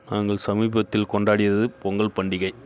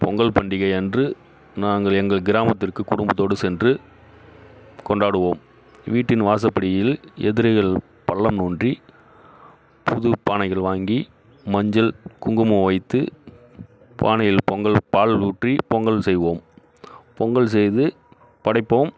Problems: background sounds at intervals